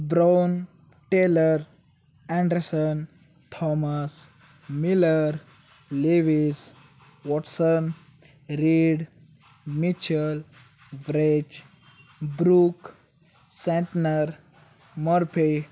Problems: none marked